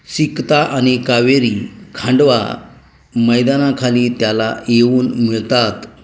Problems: background sounds at intervals